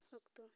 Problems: low volume